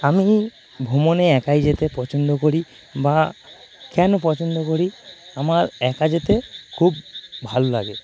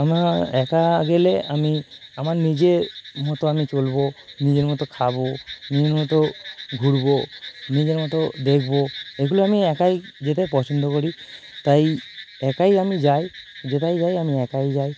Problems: constant background noise